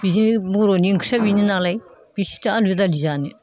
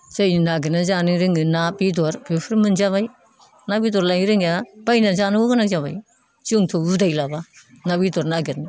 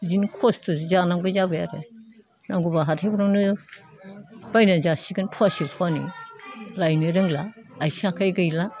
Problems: none marked